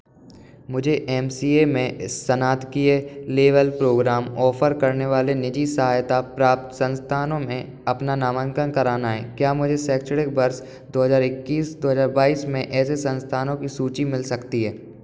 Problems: none marked